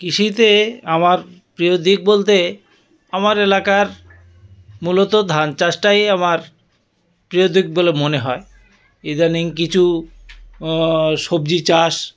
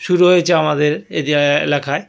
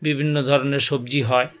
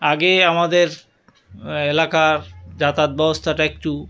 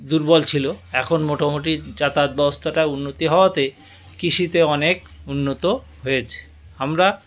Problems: none marked